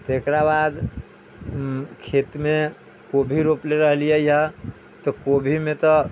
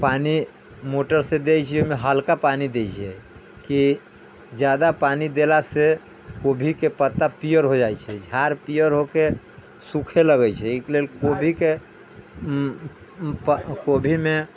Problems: background sounds at intervals